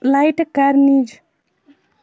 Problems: constant background noise